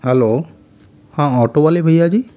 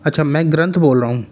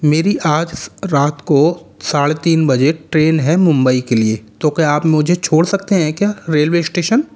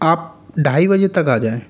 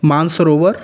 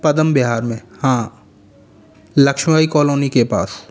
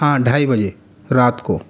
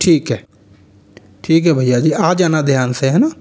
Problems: constant background noise, echo